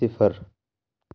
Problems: low volume